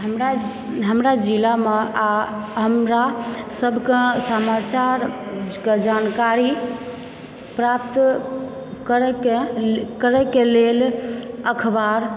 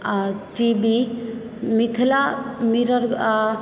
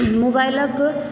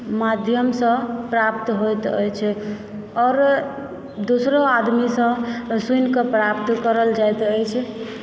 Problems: background sounds at intervals